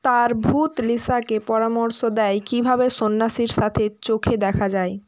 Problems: background sounds at intervals